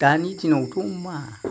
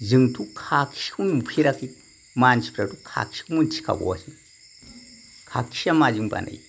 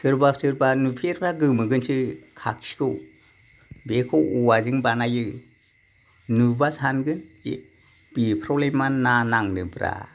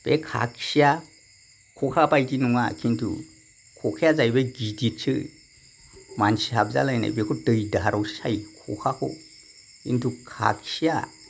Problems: none marked